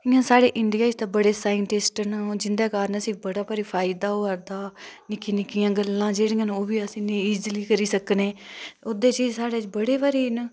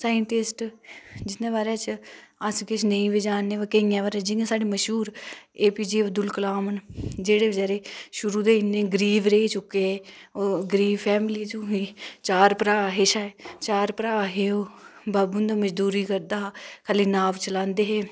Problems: none marked